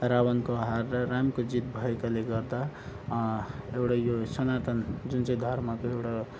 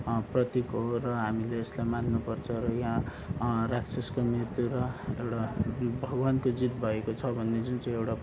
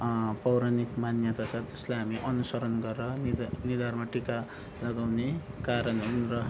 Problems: background sounds at intervals